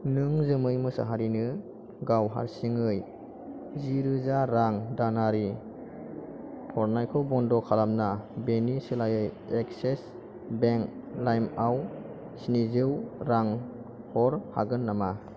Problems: none marked